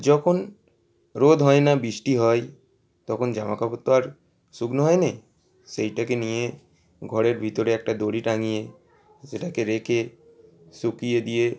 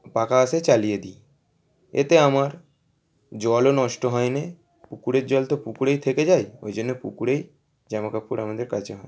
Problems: constant background noise